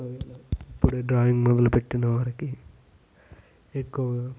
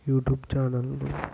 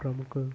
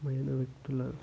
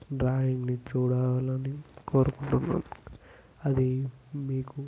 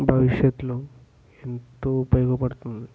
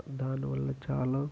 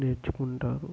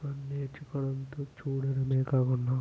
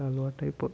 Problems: low volume